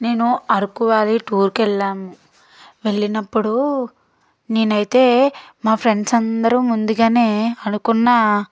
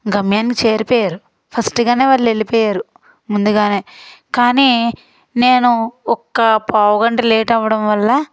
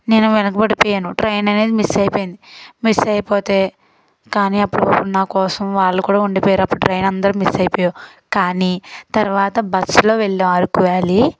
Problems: none marked